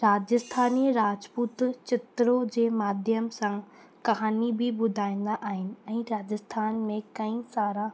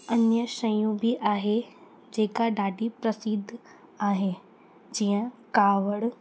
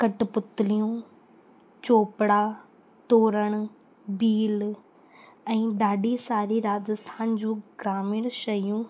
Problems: constant background noise